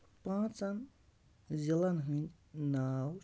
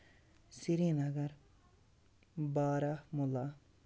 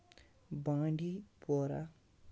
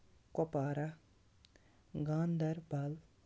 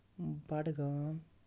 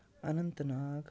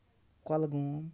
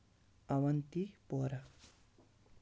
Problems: low volume